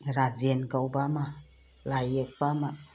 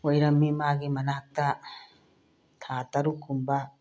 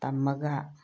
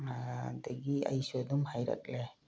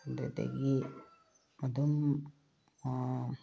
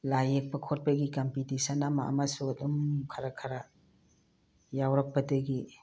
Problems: none marked